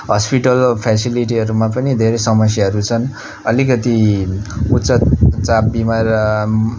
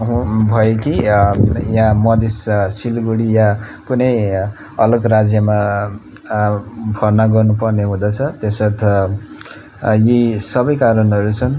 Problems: none marked